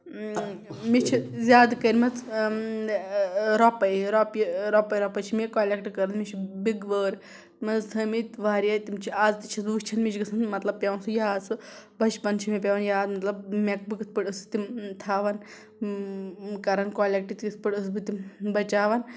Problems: background sounds at intervals